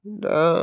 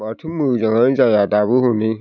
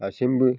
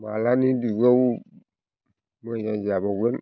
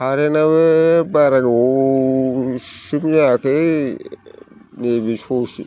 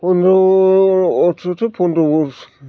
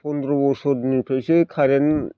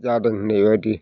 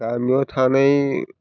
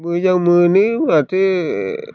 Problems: constant background noise